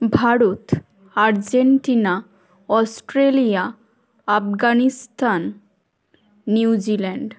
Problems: none marked